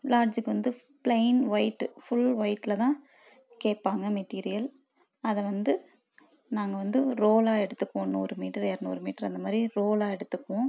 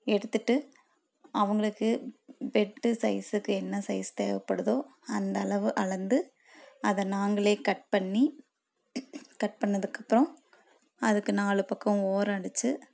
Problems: none marked